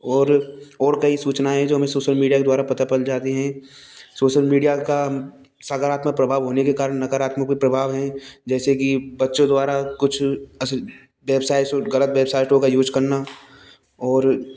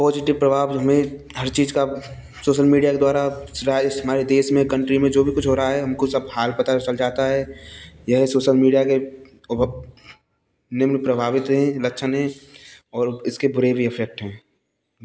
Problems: constant background noise